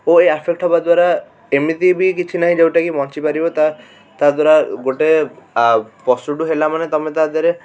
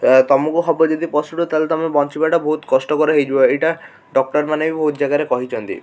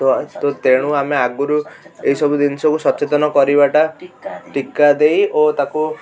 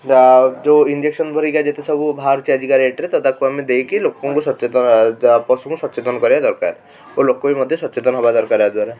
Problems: constant background noise, continuous background conversations